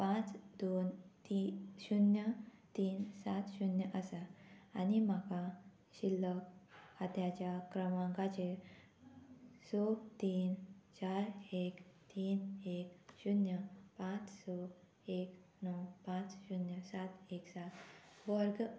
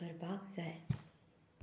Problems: none marked